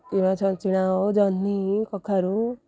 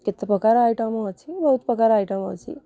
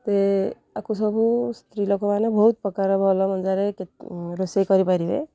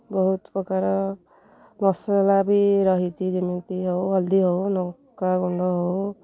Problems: low volume